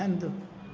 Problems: constant background noise, echo